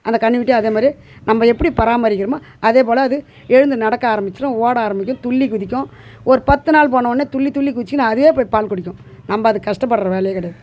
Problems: background conversations at intervals